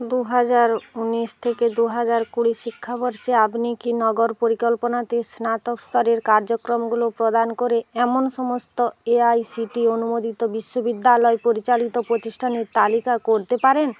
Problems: none marked